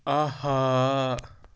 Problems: none marked